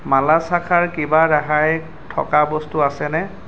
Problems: none marked